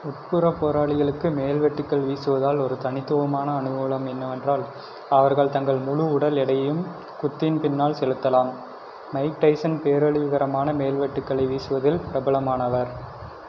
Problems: constant background noise